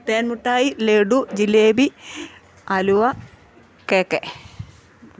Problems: none marked